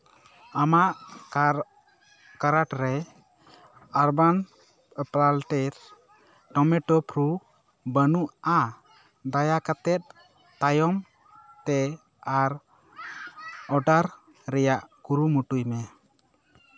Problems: background sounds at intervals